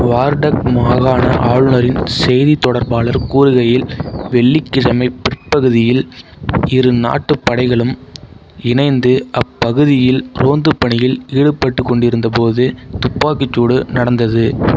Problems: background sounds at intervals